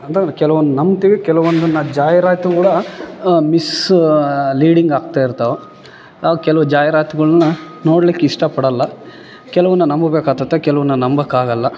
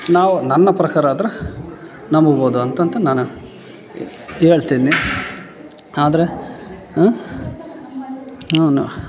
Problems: background sounds at intervals